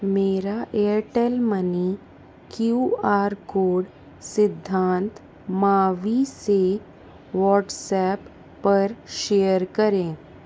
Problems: constant background noise